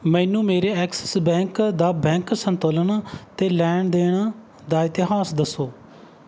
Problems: background sounds at intervals